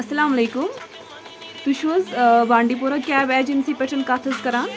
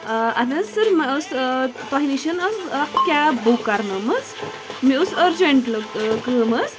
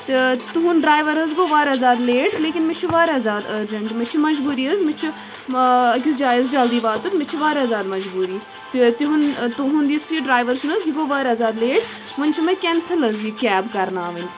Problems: constant background noise